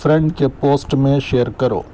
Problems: background sounds at intervals